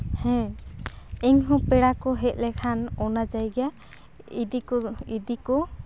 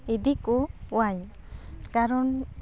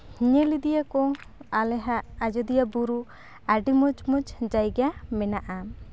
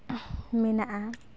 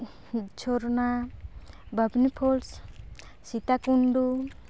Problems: constant background noise, background conversations at intervals